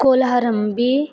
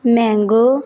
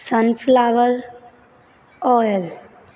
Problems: constant background noise